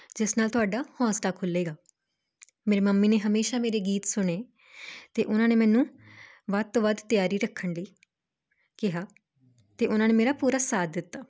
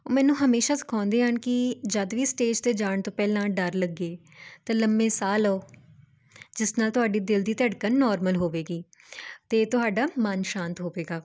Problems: constant background noise